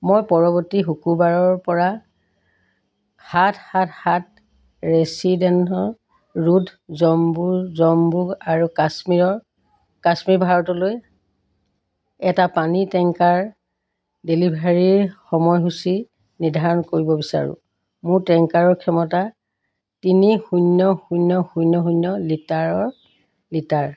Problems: constant background noise